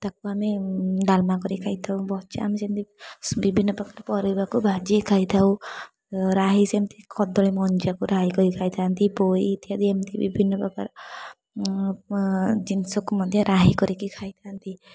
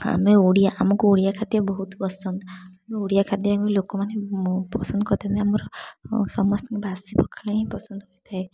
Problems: constant background noise, background conversations at intervals